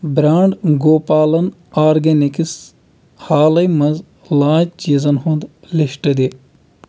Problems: constant background noise